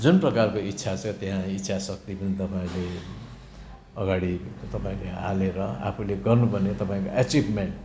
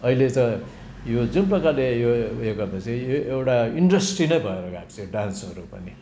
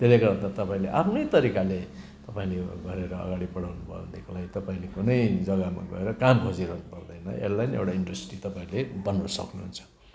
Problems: background sounds at intervals